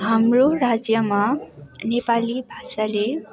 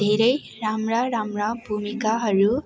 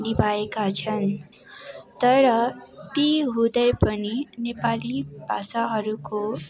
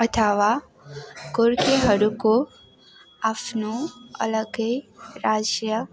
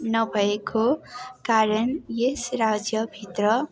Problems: constant background noise